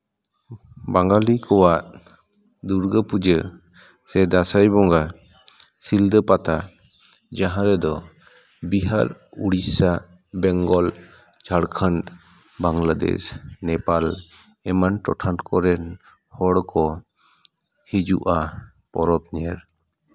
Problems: background conversations at intervals